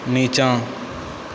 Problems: constant background noise